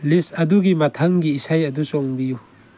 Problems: none marked